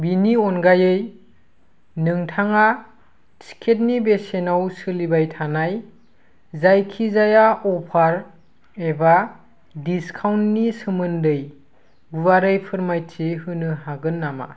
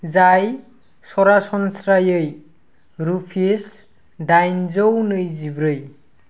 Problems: constant background noise